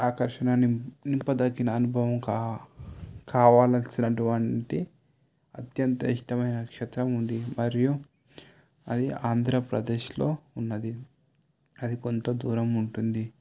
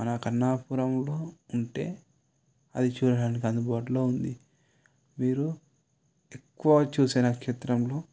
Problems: none marked